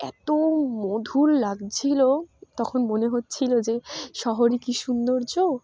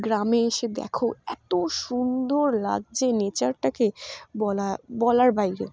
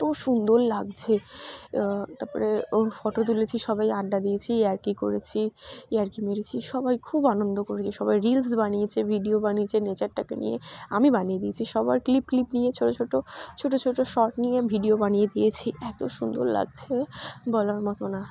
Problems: none marked